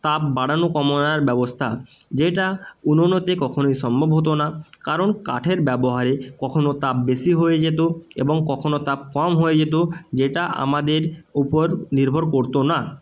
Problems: constant background noise